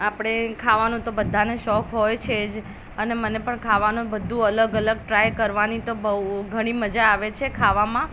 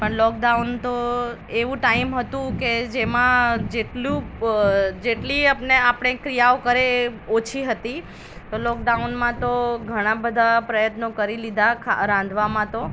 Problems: constant background noise